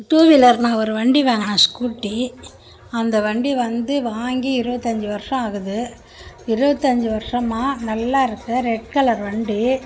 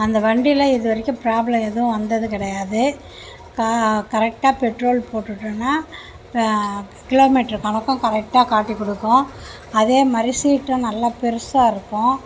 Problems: background conversations at intervals